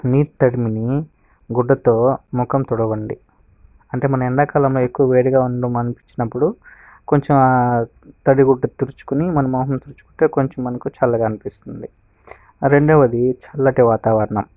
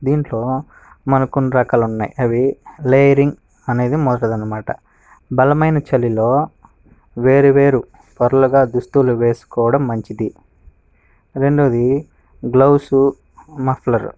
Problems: background sounds at intervals